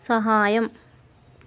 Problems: none marked